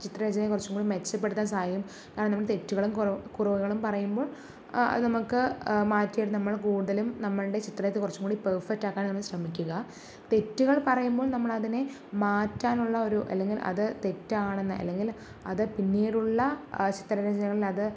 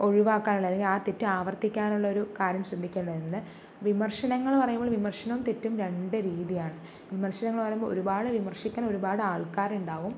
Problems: background sounds at intervals, low volume